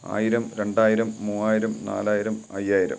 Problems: none marked